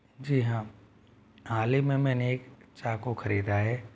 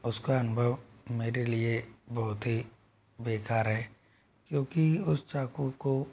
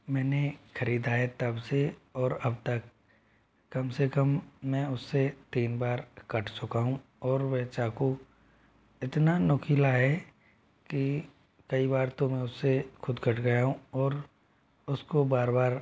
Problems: none marked